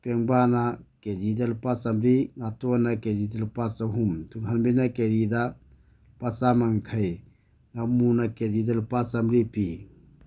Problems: none marked